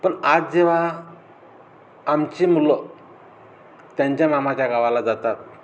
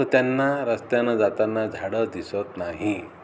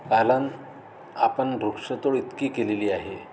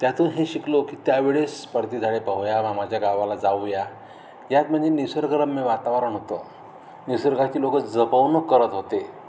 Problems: none marked